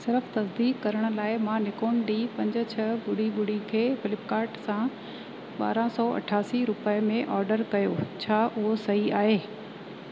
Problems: constant background noise, echo